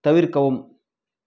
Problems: background conversations at intervals